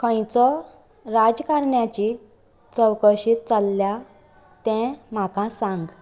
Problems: constant background noise